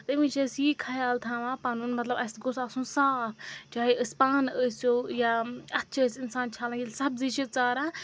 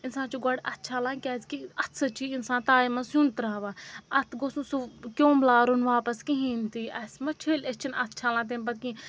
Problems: background sounds at intervals